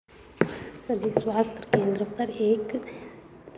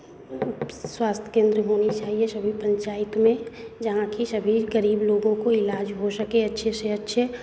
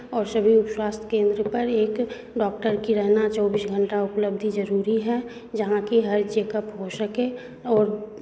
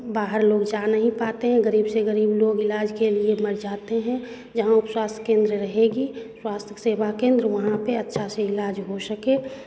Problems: constant background noise, background conversations at intervals